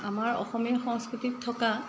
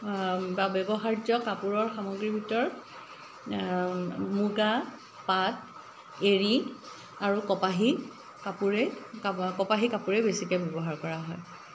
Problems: none marked